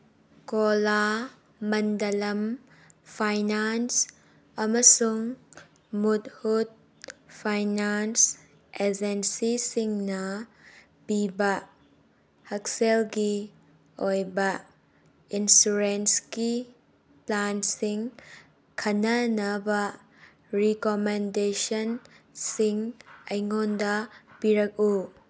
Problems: none marked